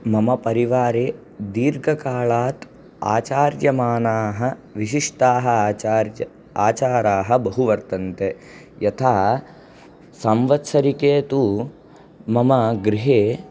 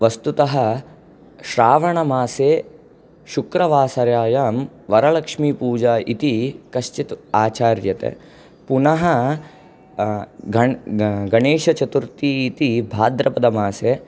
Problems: none marked